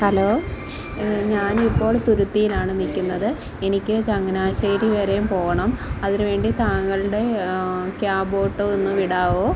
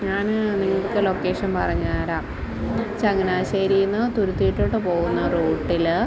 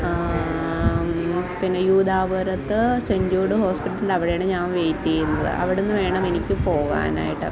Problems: constant background noise, background conversations at intervals